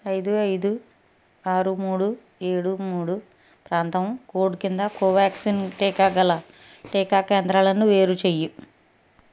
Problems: background sounds at intervals